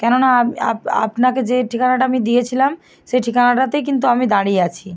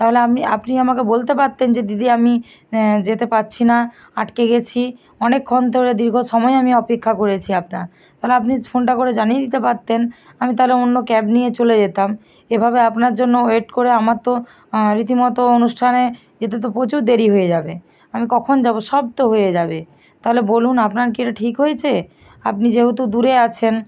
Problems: none marked